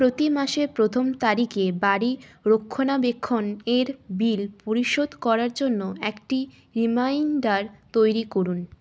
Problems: constant background noise, background conversations at intervals